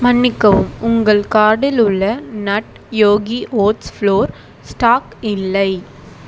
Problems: constant background noise